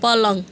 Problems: background conversations at intervals